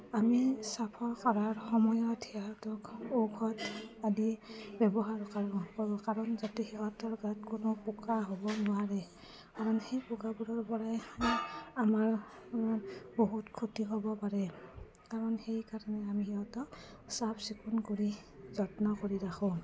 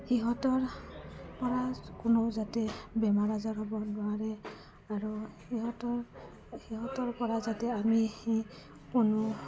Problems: none marked